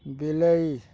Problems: none marked